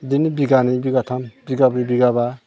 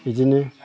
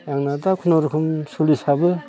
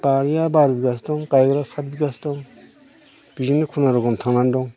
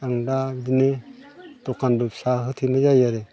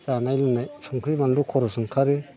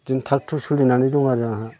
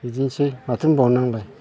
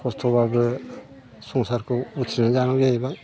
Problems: constant background noise